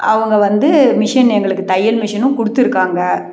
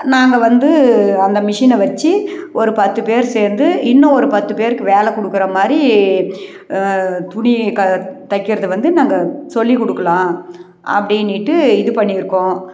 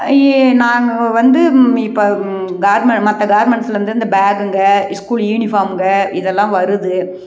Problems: none marked